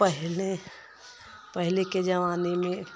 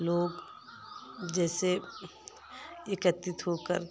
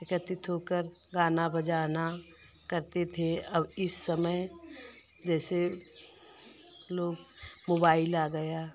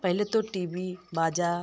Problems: constant background noise